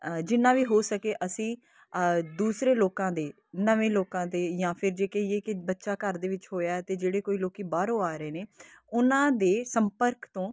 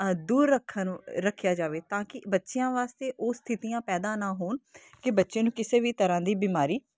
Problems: constant background noise